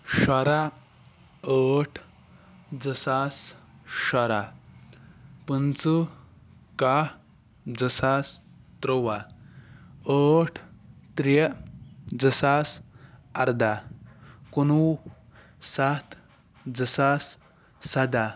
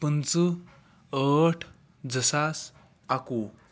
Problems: background sounds at intervals